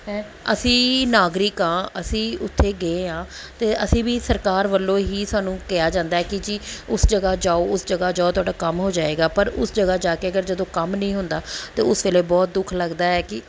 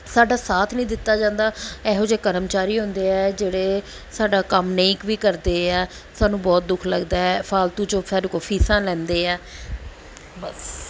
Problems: background sounds at intervals